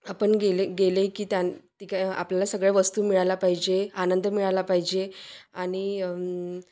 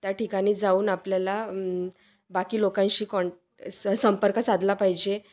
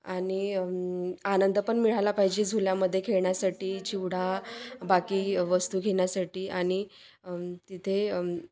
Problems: constant background noise, background conversations at intervals